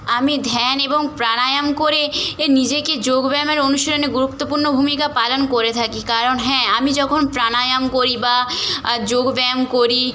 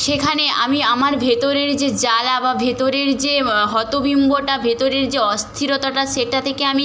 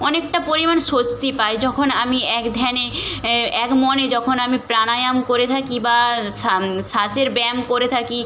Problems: none marked